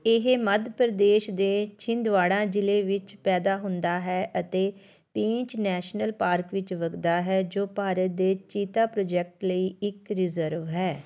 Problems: continuous background conversations